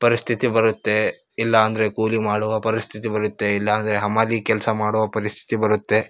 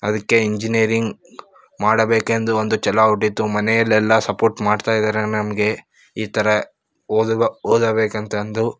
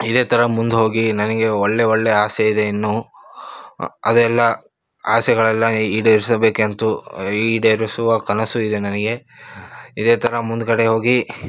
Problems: none marked